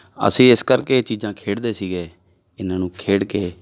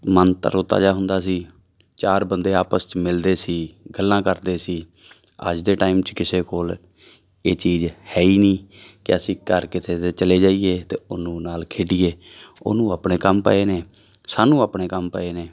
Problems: background sounds at intervals